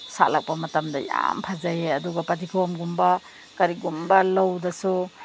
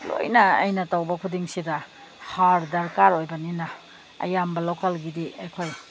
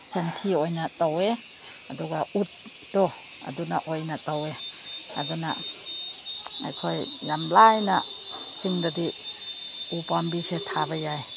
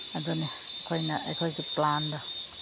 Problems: background sounds at intervals